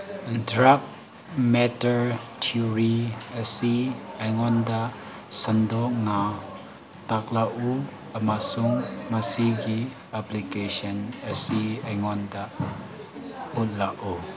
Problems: constant background noise